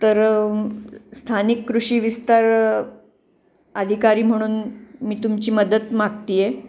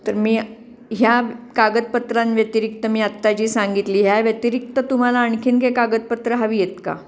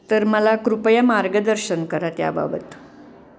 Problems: constant background noise